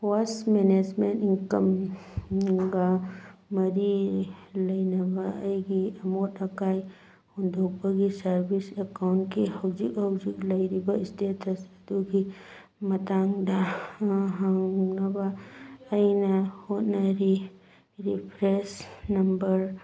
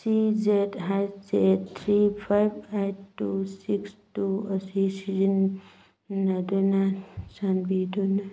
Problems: background sounds at intervals